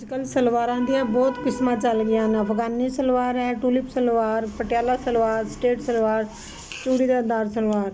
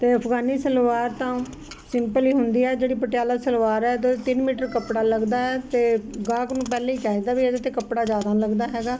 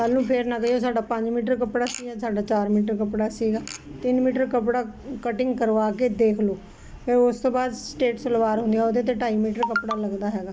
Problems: constant background noise